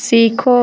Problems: none marked